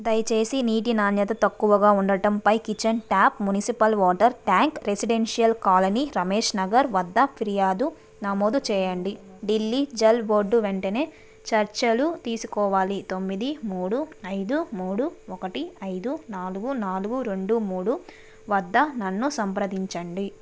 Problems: background sounds at intervals